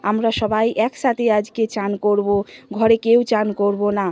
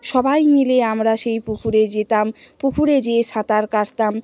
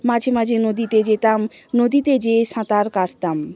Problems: constant background noise, background conversations at intervals